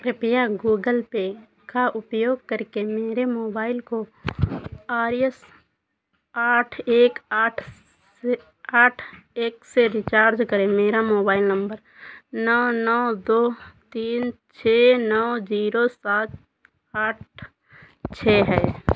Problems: constant background noise